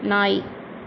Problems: none marked